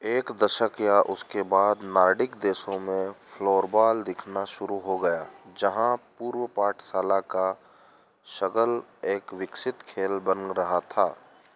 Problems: constant background noise